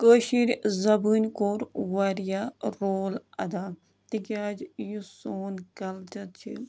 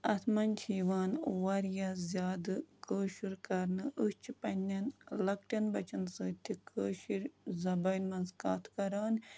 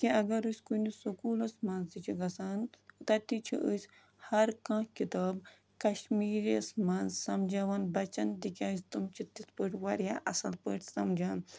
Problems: background sounds at intervals